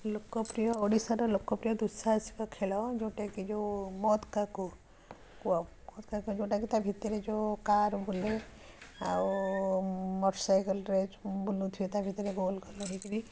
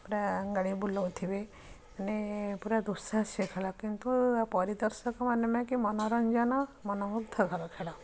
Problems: constant background noise, continuous background conversations